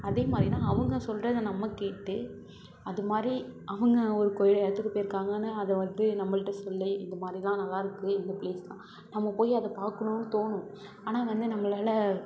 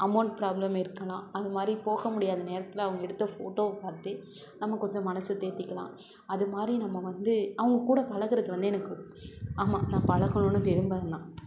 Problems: constant background noise